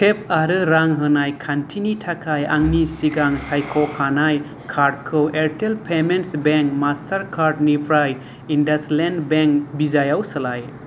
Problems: none marked